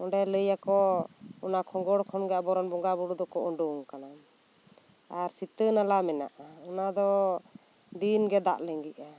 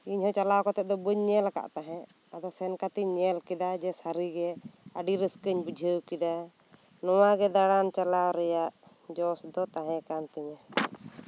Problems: constant background noise